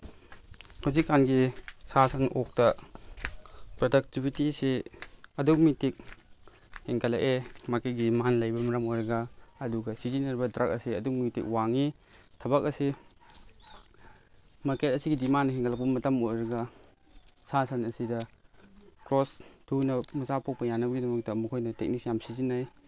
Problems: background sounds at intervals